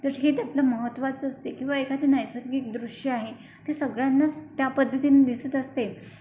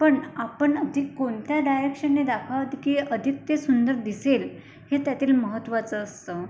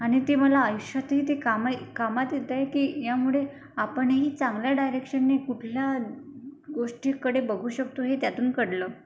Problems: none marked